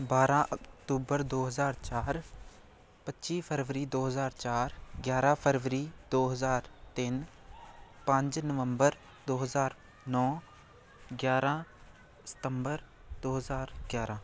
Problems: constant background noise